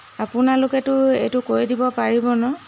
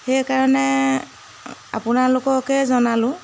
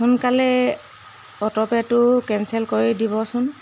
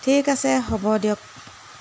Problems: constant background noise